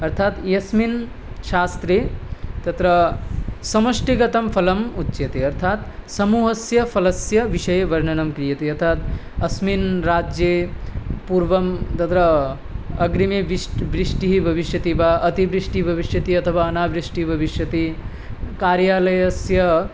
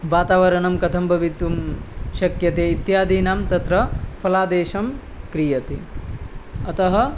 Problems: none marked